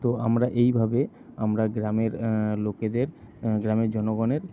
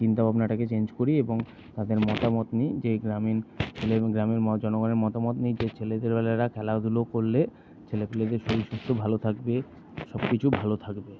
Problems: none marked